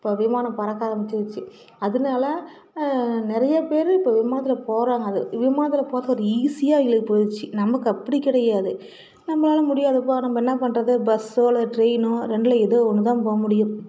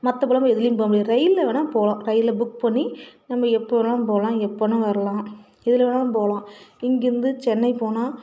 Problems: continuous background conversations